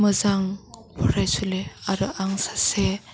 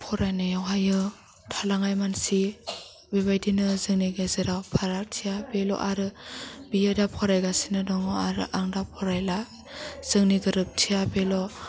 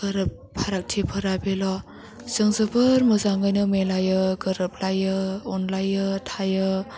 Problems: low volume